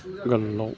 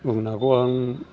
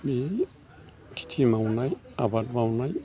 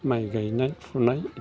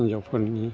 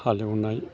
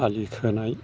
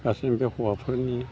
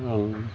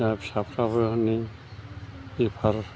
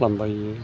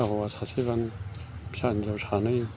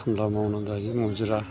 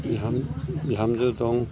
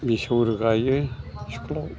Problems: constant background noise